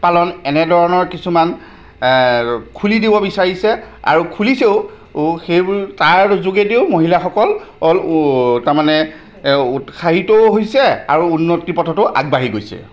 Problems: none marked